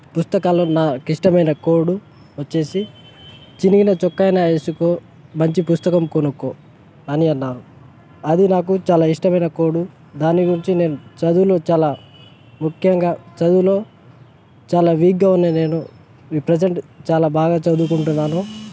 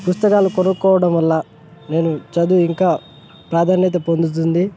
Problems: constant background noise